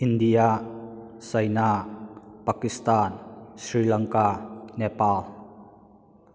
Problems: echo